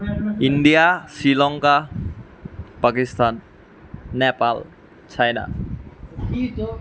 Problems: continuous background conversations